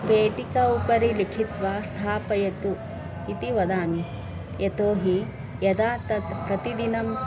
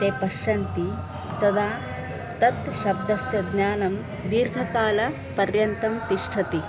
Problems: constant background noise, continuous background conversations